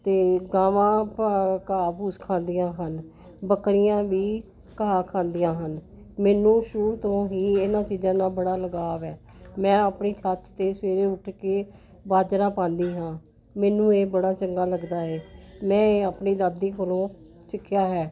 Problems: none marked